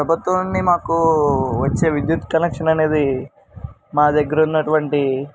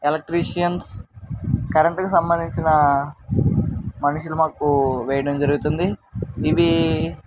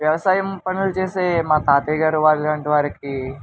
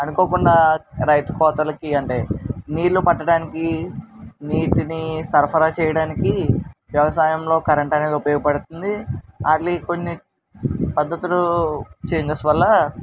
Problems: constant background noise